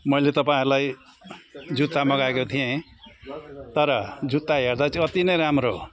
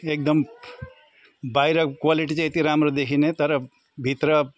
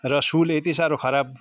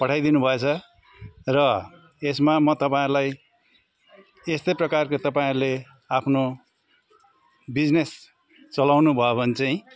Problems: constant background noise, continuous background conversations